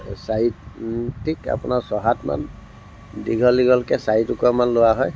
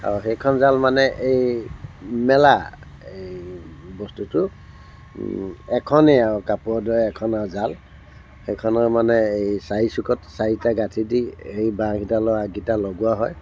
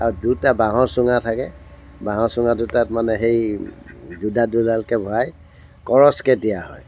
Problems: constant background noise